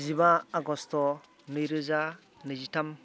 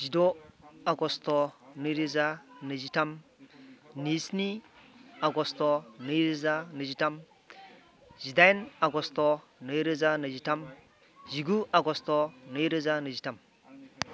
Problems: background conversations at intervals